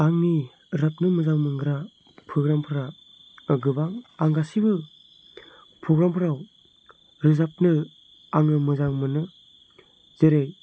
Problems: none marked